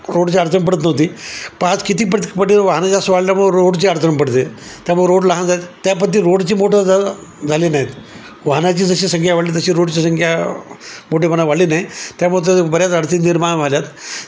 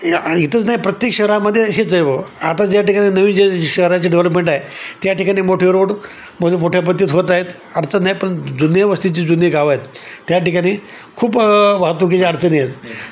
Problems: constant background noise